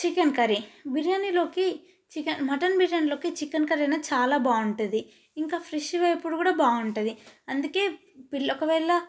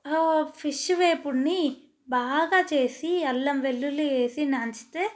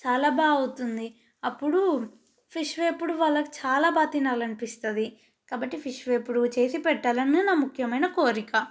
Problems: none marked